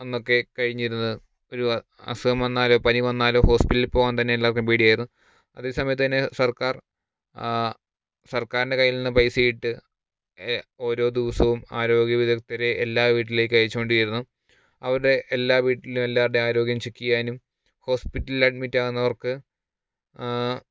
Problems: none marked